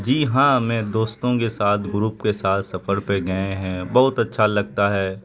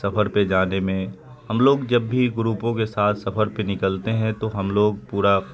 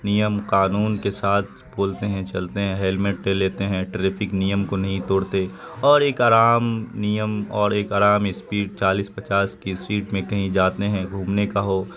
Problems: constant background noise